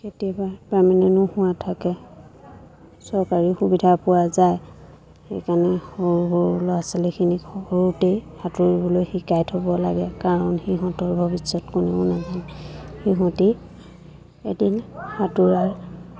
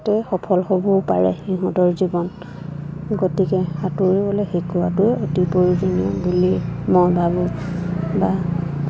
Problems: constant background noise, background conversations at intervals